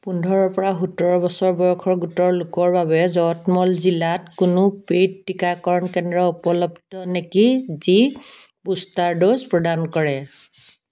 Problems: background sounds at intervals